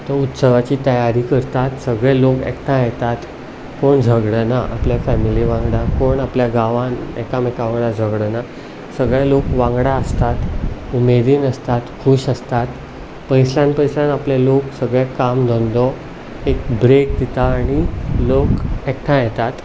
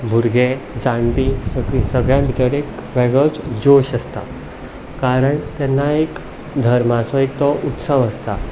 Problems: none marked